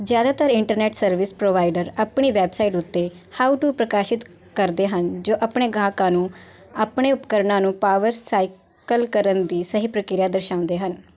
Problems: none marked